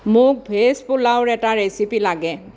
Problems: constant background noise